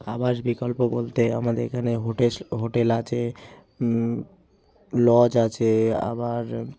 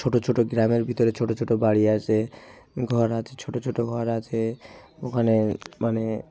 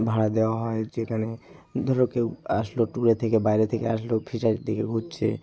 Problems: constant background noise